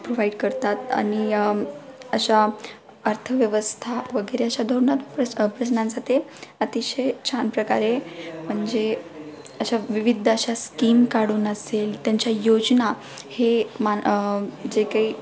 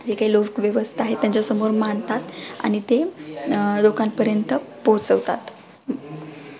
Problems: background sounds at intervals, continuous background conversations